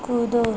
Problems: constant background noise